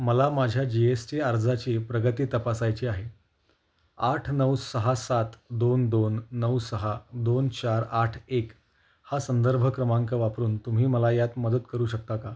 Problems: none marked